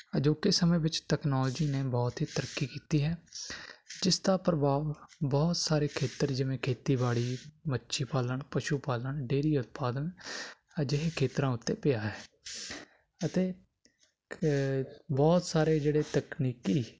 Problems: none marked